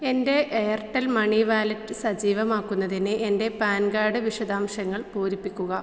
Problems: low volume